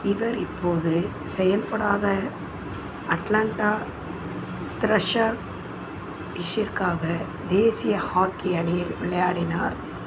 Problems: constant background noise